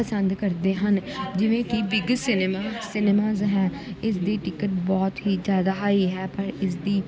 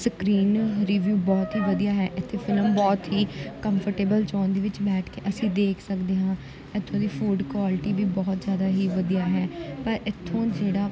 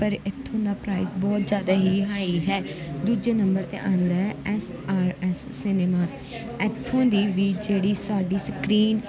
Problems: continuous background conversations